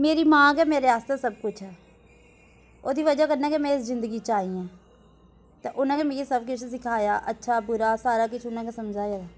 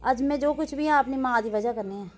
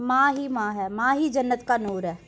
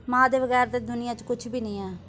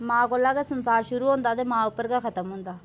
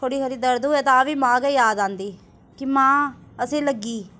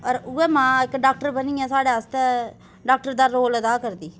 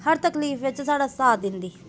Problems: constant background noise